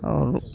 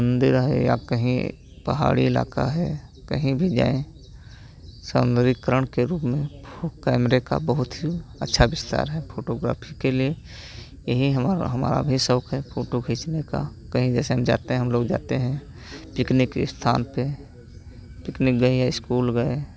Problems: constant background noise